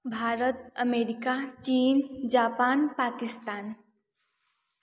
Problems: none marked